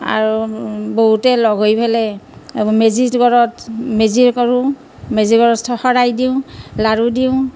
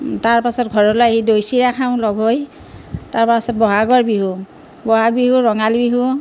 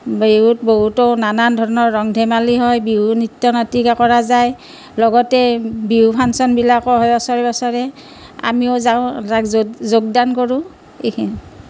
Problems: constant background noise